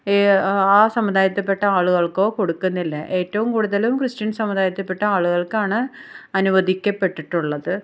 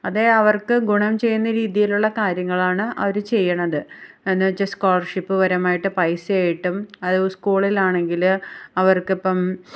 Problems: none marked